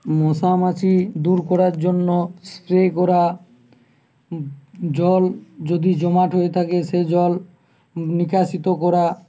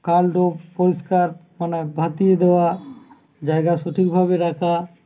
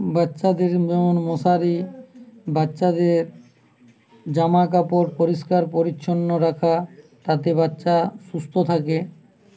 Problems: constant background noise